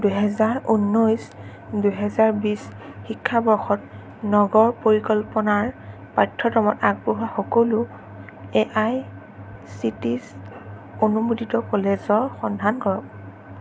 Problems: constant background noise